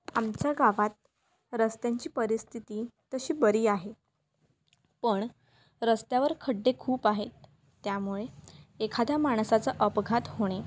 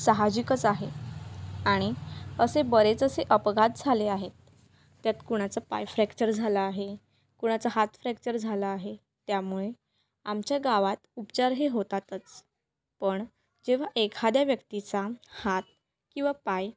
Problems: constant background noise